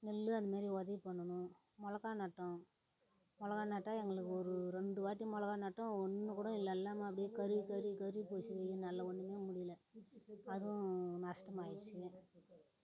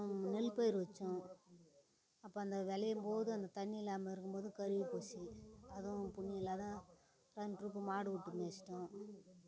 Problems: none marked